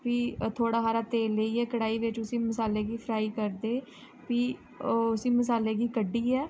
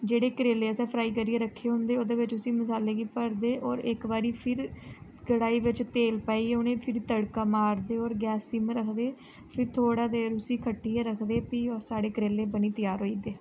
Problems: low volume